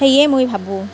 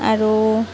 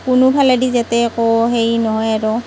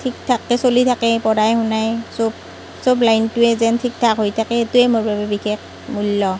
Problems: none marked